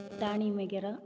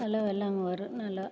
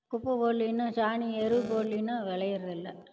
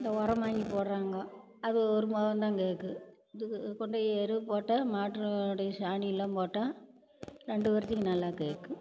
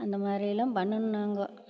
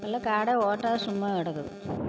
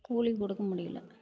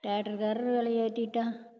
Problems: background sounds at intervals